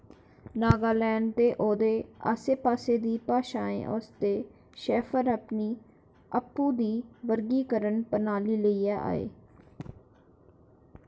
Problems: constant background noise